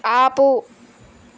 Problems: constant background noise